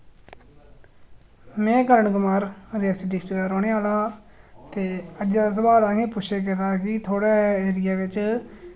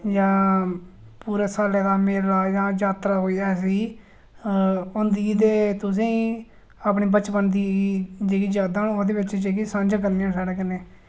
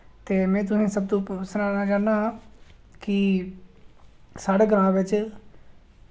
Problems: none marked